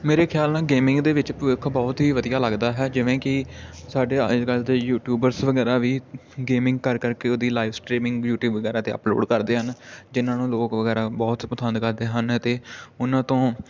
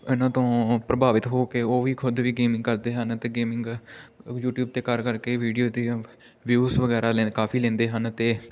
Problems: constant background noise